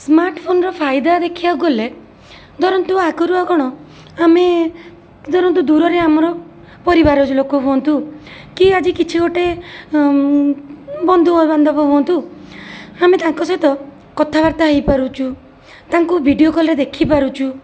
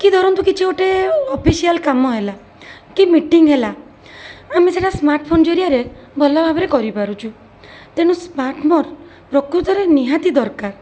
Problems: constant background noise